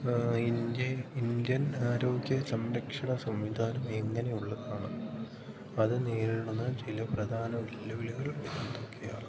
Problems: none marked